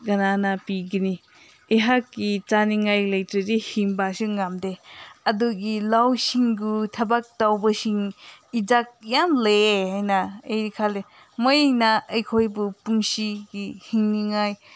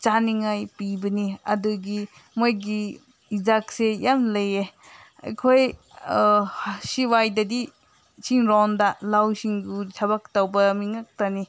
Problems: background sounds at intervals